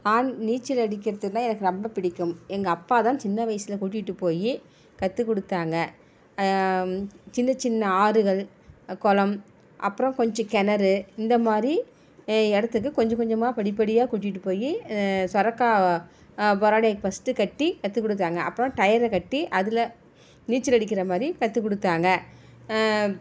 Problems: none marked